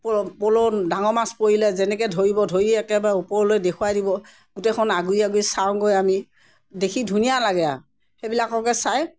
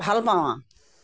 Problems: none marked